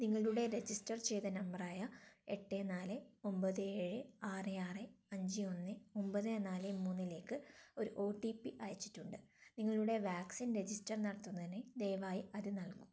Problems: low volume